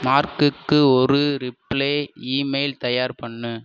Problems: none marked